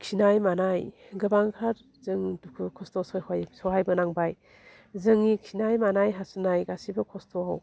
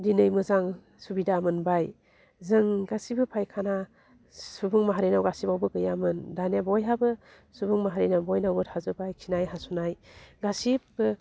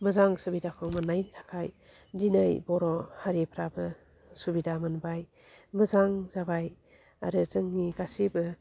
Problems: low volume